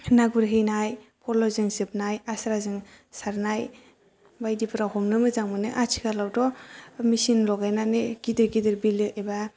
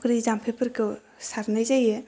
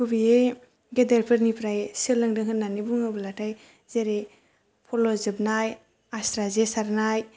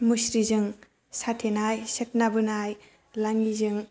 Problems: low volume